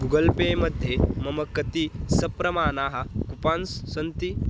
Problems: constant background noise